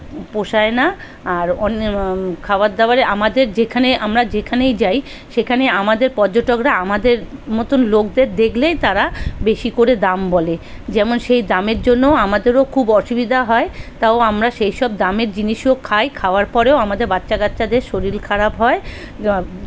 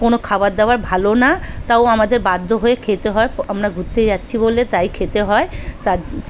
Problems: constant background noise, background conversations at intervals